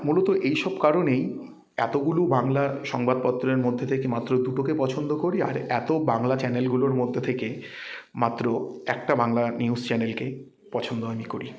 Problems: none marked